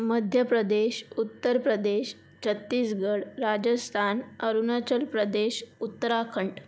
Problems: constant background noise